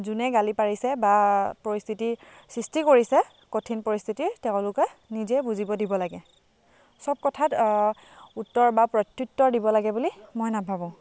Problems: constant background noise, background conversations at intervals